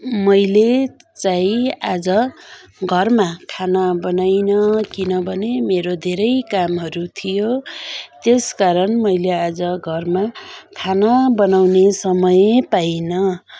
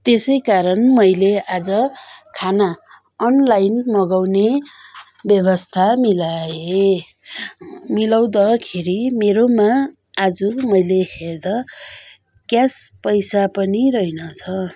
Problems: continuous background conversations